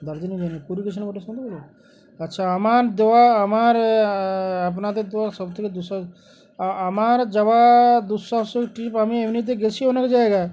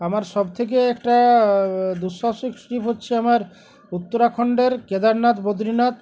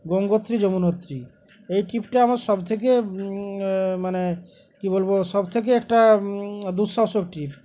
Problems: constant background noise, background conversations at intervals